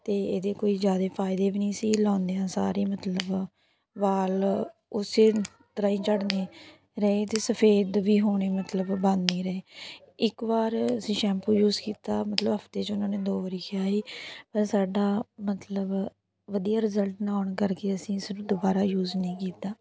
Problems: background conversations at intervals